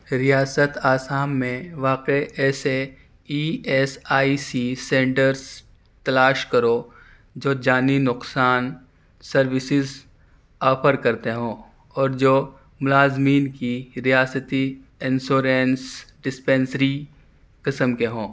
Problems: none marked